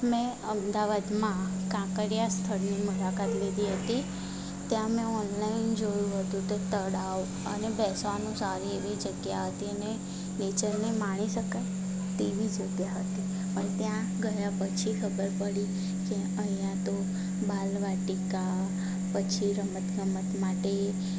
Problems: none marked